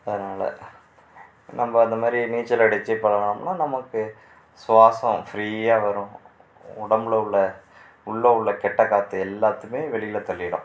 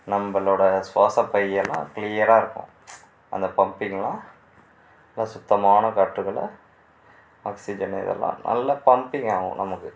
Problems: background sounds at intervals